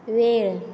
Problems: none marked